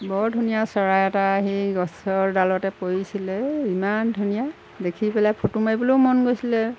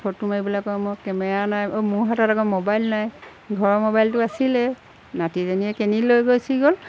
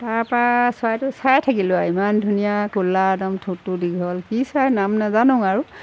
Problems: none marked